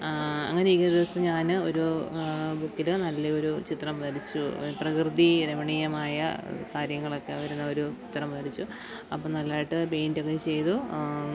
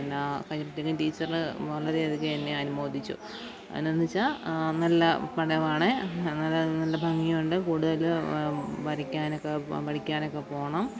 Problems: background sounds at intervals, low volume